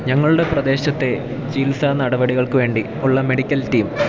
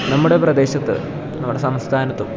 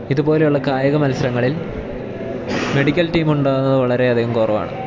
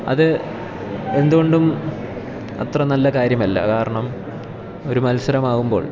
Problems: background sounds at intervals